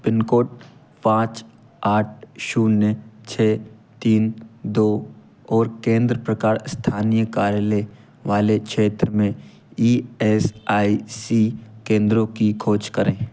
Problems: background sounds at intervals